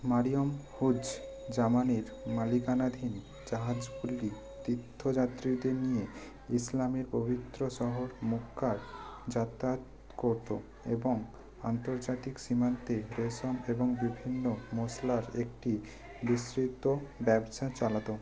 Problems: continuous background conversations